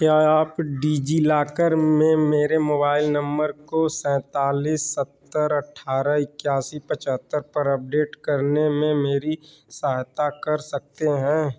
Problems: none marked